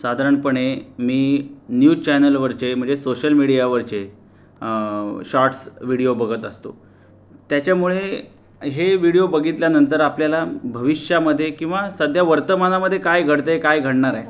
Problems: constant background noise, background conversations at intervals